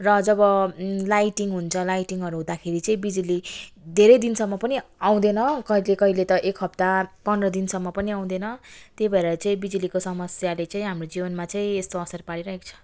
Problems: background sounds at intervals